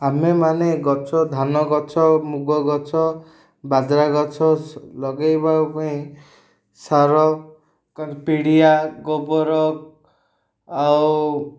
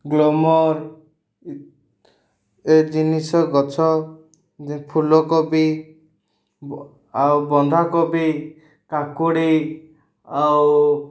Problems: none marked